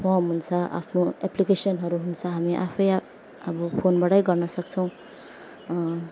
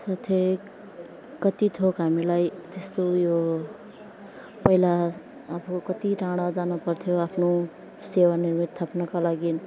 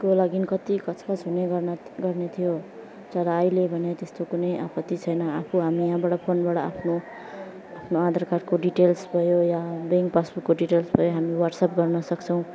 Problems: background sounds at intervals, background conversations at intervals, low volume